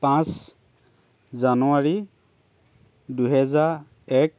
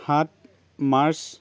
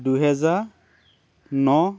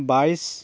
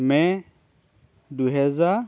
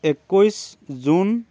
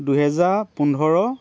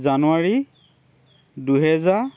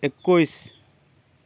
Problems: constant background noise